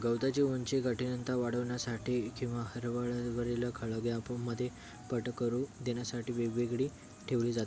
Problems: constant background noise, continuous background conversations